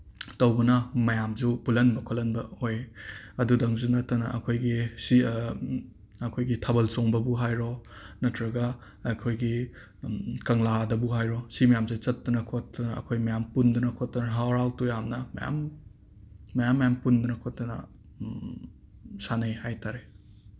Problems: background sounds at intervals